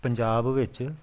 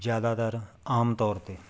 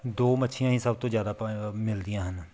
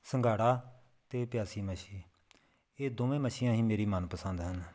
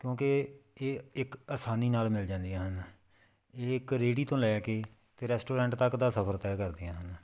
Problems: background sounds at intervals